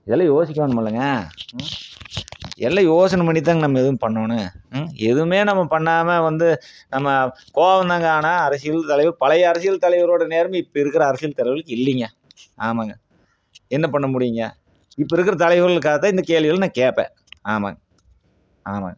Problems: none marked